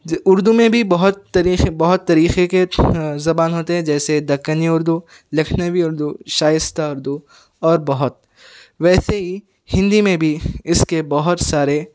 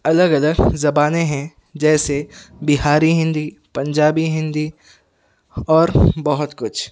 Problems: background sounds at intervals